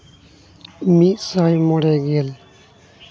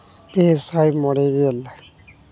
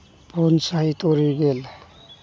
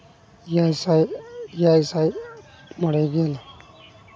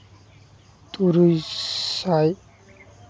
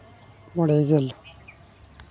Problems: constant background noise